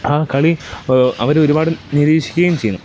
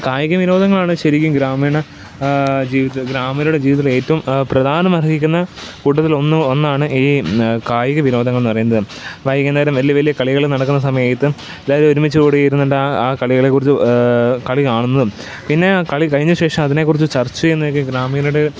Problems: constant background noise